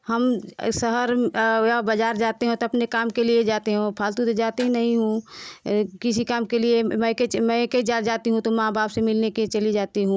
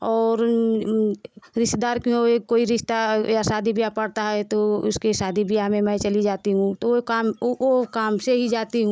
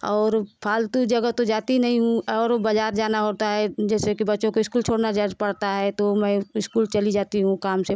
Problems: constant background noise